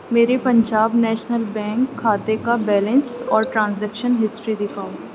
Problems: none marked